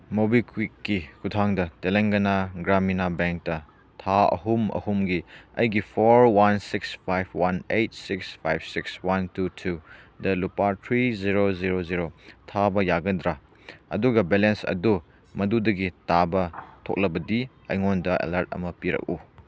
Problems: none marked